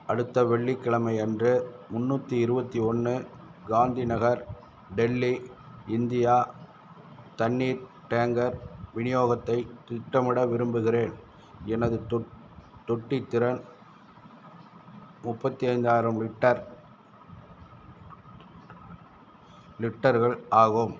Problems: none marked